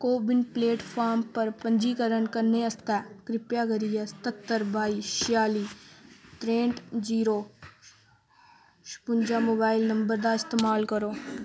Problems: background sounds at intervals